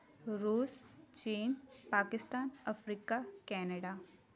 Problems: background conversations at intervals